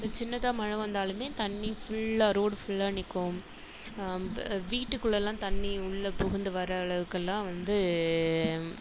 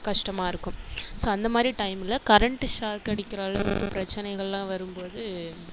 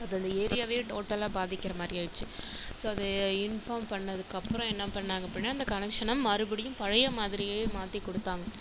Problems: constant background noise